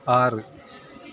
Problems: background sounds at intervals